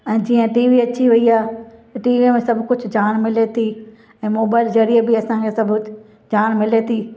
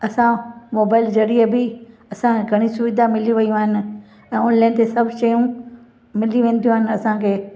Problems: constant background noise, echo